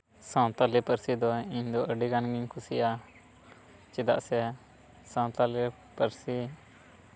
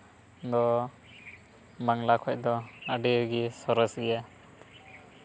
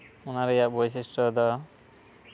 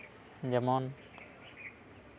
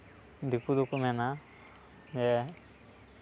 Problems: background sounds at intervals, background conversations at intervals